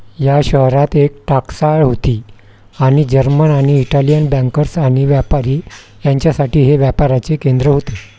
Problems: constant background noise